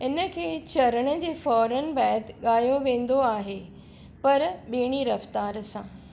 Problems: none marked